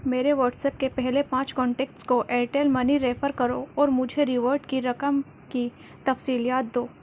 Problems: constant background noise